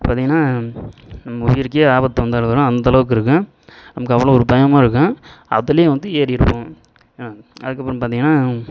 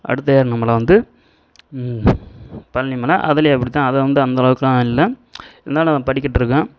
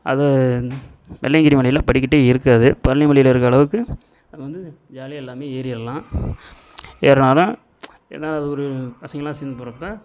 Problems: continuous background conversations